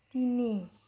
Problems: low volume